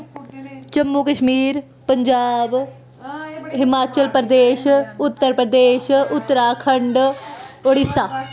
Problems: constant background noise